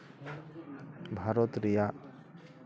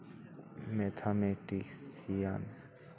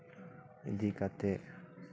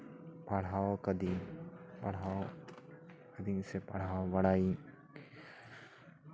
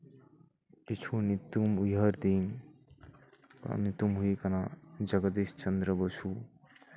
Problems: none marked